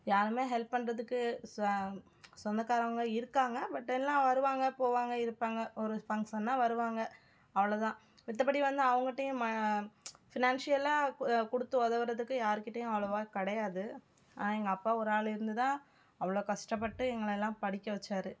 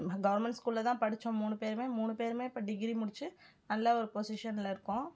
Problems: background sounds at intervals